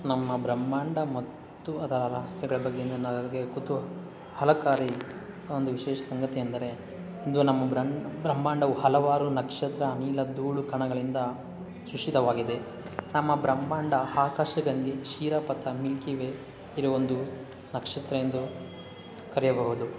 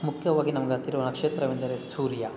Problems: background sounds at intervals